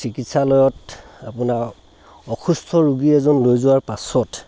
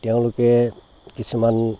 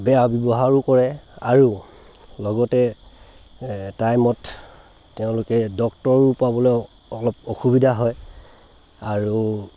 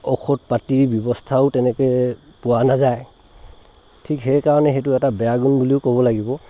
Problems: constant background noise